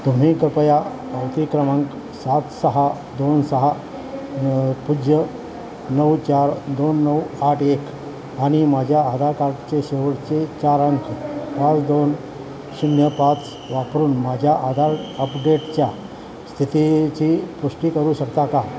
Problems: constant background noise, background conversations at intervals